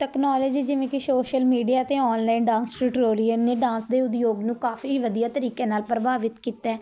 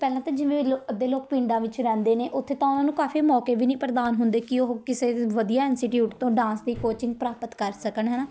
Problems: none marked